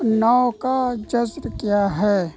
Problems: constant background noise, low volume